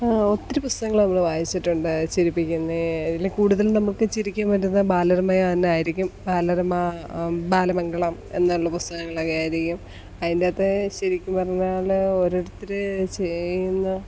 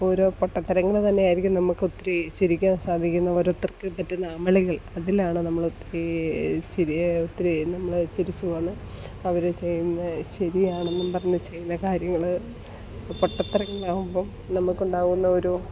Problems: background sounds at intervals, low volume